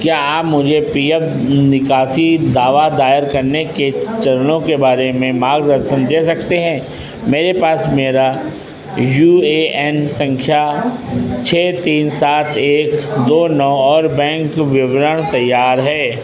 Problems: constant background noise